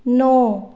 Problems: none marked